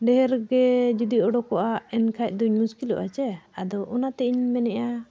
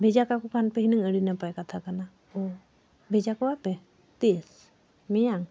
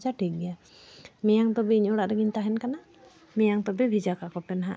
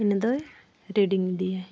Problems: background sounds at intervals